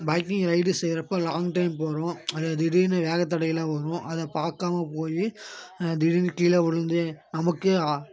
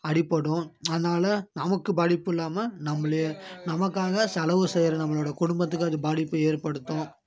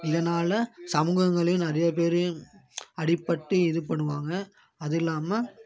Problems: none marked